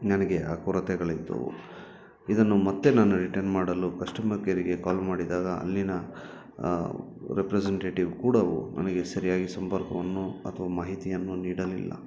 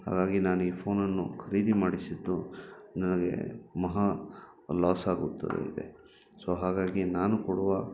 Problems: background sounds at intervals